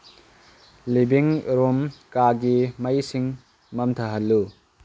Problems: low volume